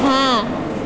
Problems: none marked